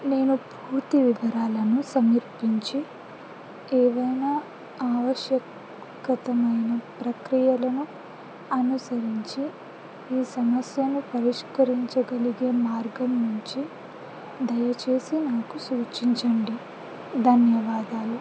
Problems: constant background noise